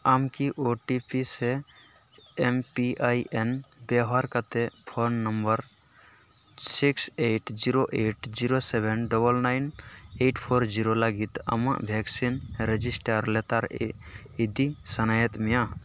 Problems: constant background noise